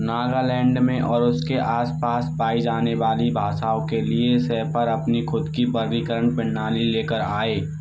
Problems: constant background noise